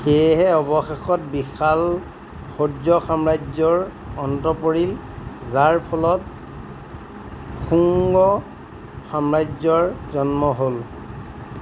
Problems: none marked